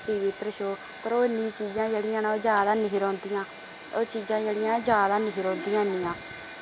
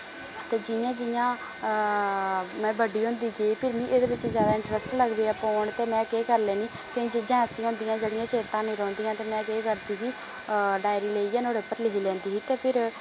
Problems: constant background noise